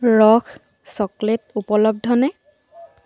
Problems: background sounds at intervals